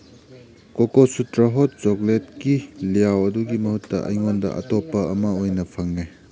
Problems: background sounds at intervals